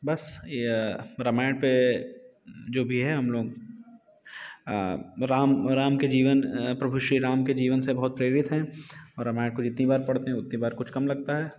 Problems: background sounds at intervals